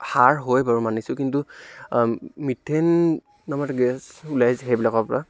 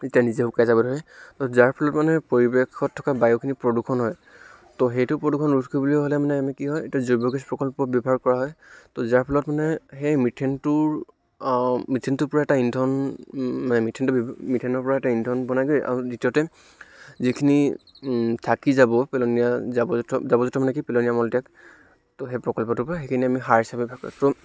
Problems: none marked